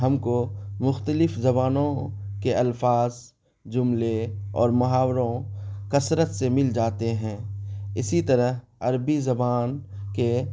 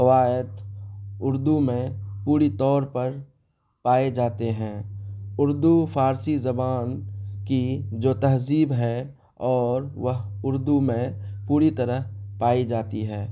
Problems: none marked